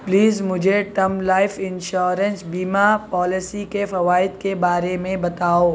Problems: constant background noise